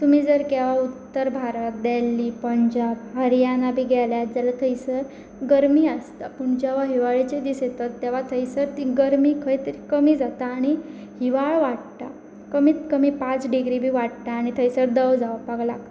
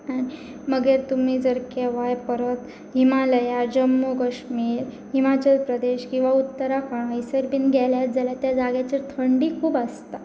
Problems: none marked